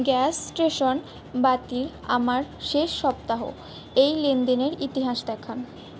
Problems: constant background noise